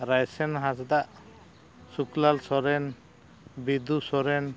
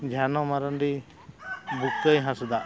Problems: background sounds at intervals